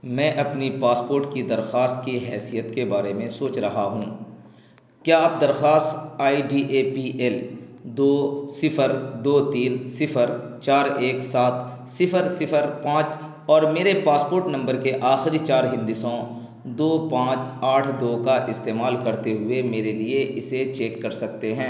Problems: constant background noise